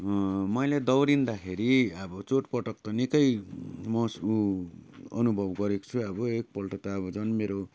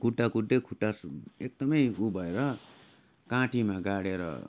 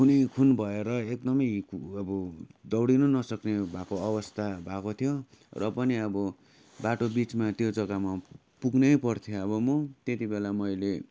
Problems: background sounds at intervals